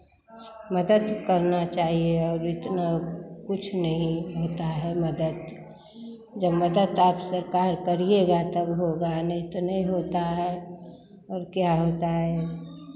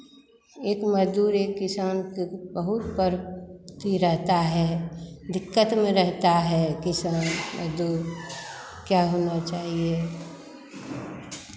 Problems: none marked